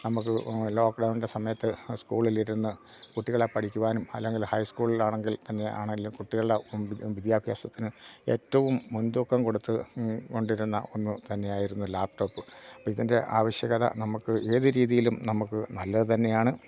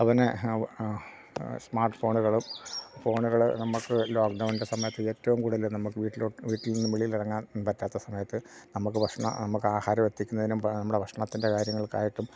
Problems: none marked